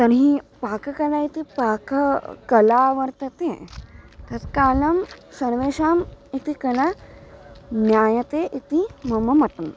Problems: none marked